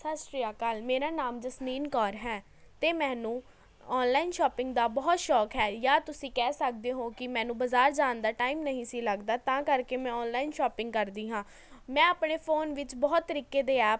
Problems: none marked